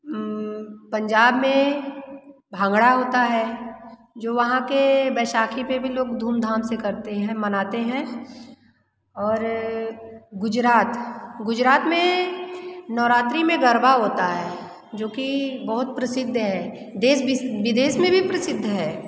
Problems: constant background noise